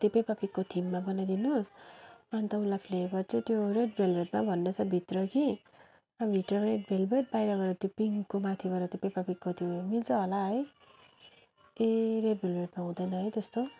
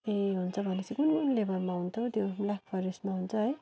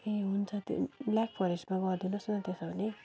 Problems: none marked